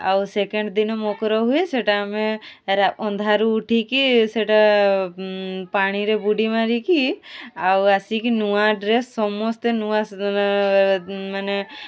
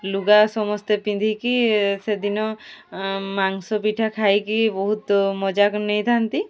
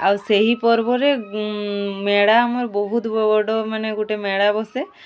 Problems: constant background noise, continuous background conversations